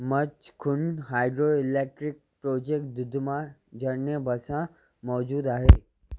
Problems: none marked